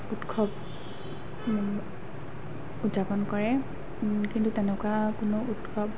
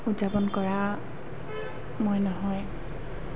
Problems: background sounds at intervals